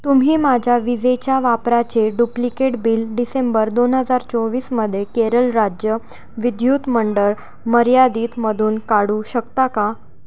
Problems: background sounds at intervals